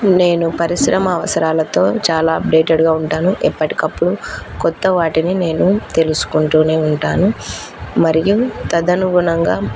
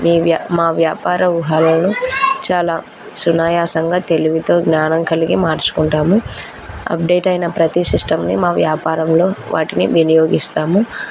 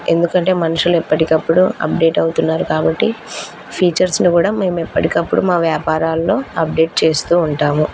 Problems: background conversations at intervals